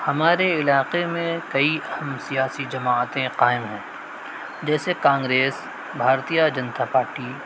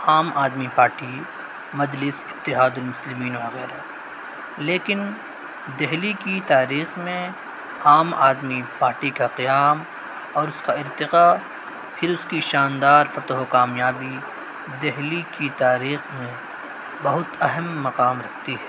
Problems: constant background noise